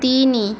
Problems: constant background noise